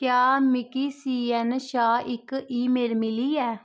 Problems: none marked